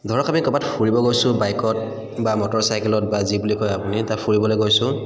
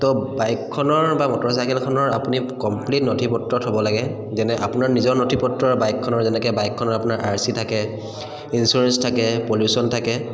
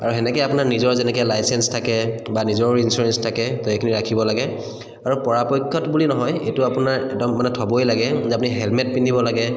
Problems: echo